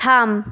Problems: background sounds at intervals